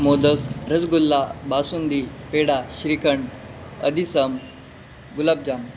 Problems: constant background noise